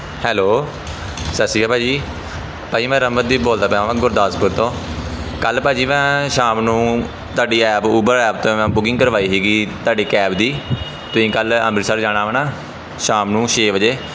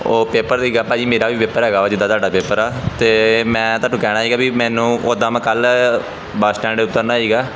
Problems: background sounds at intervals, background conversations at intervals